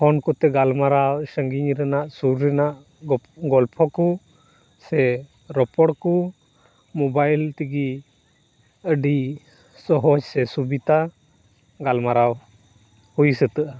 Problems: none marked